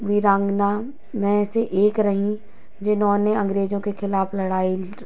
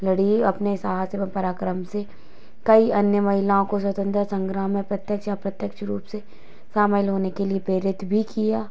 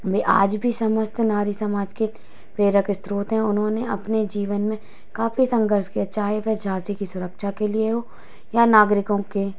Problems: constant background noise